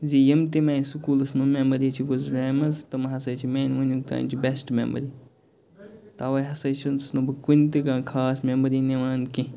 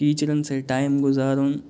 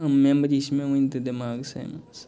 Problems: background sounds at intervals, background conversations at intervals